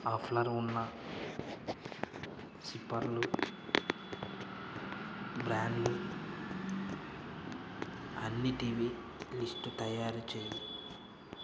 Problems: constant background noise